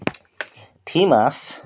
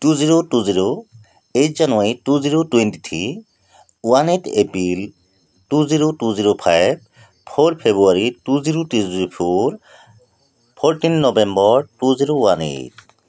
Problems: constant background noise